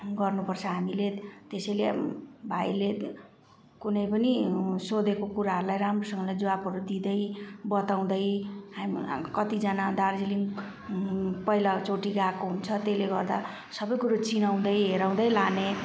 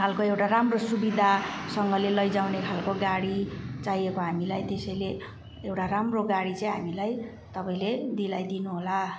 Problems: background sounds at intervals